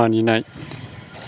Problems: constant background noise